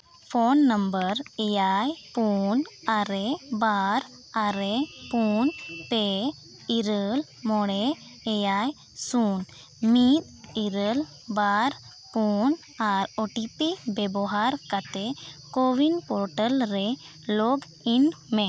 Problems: none marked